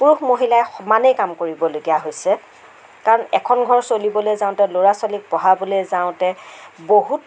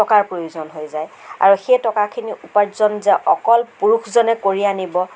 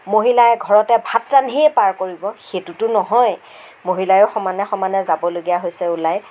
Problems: constant background noise